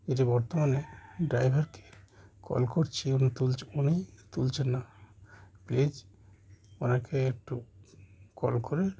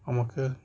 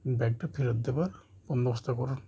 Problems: constant background noise